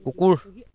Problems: continuous background conversations